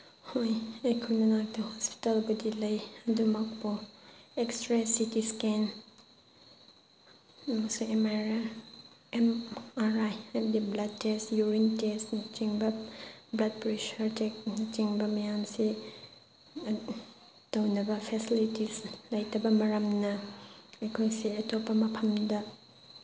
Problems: constant background noise